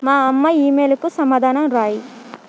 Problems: constant background noise